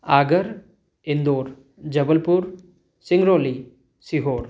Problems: none marked